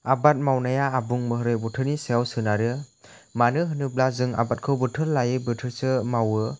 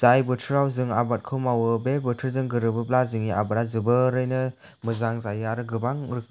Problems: none marked